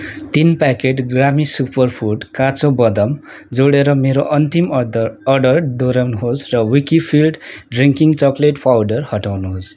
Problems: none marked